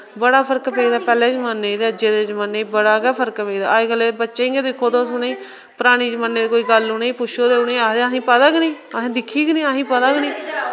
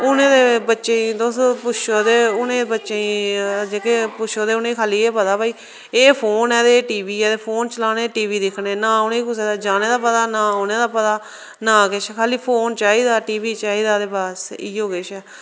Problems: none marked